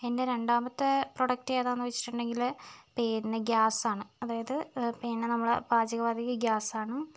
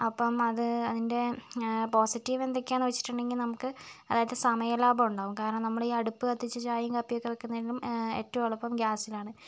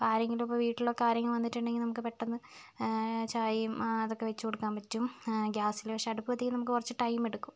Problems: none marked